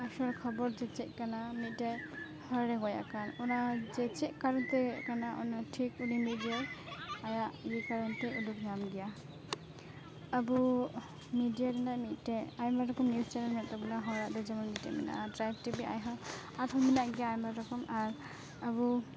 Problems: constant background noise, continuous background conversations